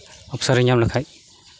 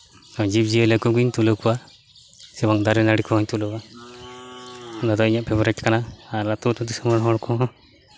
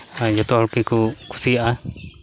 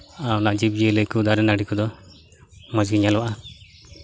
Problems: constant background noise, background conversations at intervals